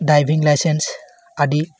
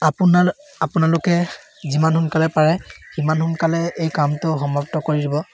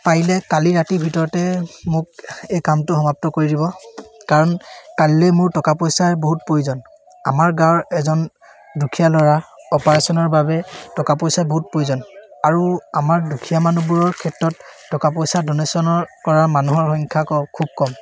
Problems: constant background noise